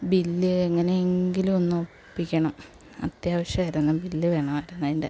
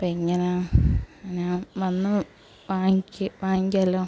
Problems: background sounds at intervals